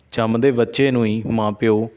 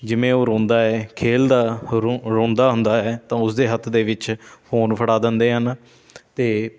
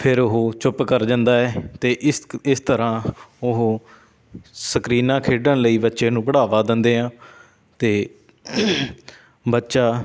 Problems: background sounds at intervals